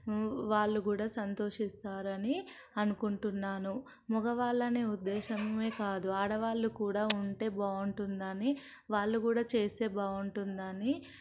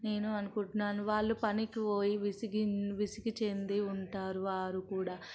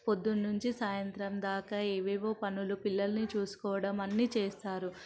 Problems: background sounds at intervals